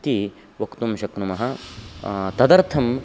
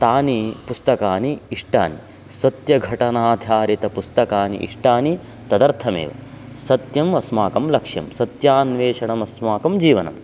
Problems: constant background noise